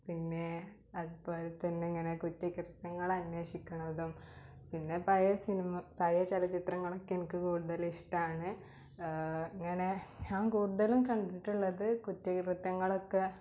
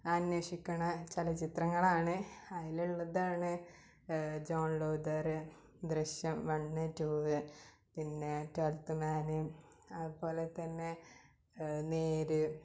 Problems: low volume